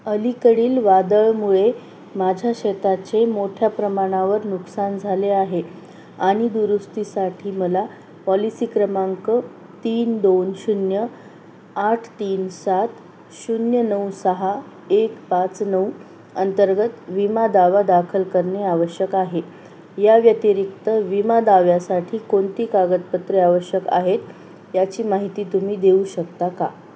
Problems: constant background noise